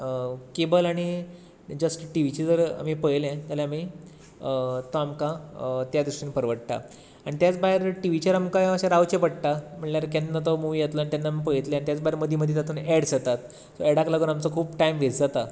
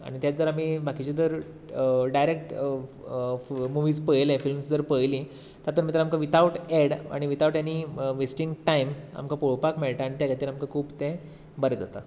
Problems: none marked